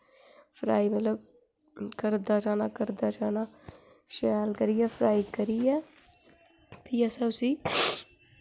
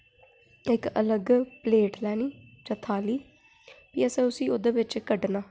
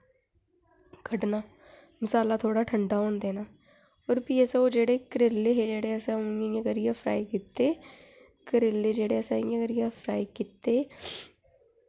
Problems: constant background noise